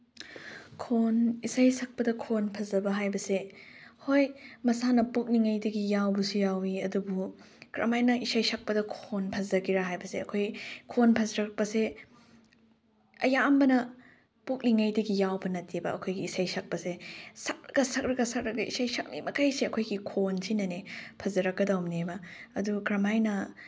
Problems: background sounds at intervals